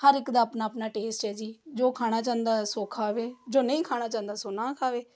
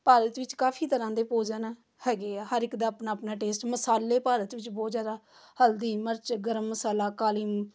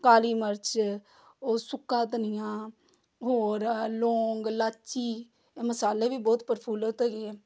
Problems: background sounds at intervals